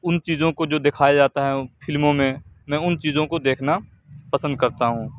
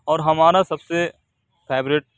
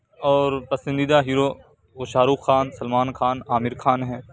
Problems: none marked